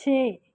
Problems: background sounds at intervals